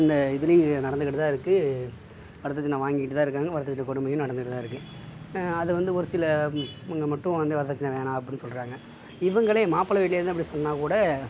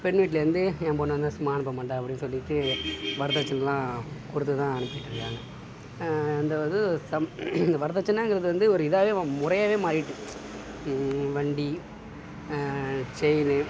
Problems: background sounds at intervals